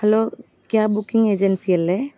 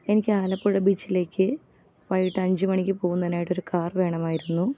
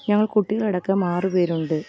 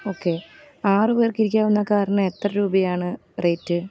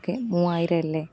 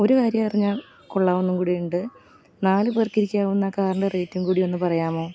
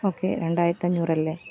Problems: none marked